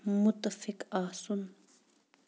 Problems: none marked